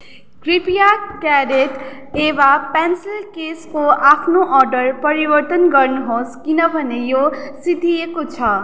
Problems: background sounds at intervals